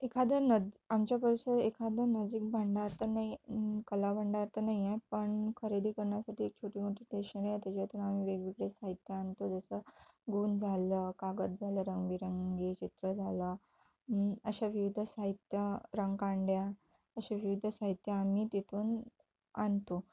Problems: none marked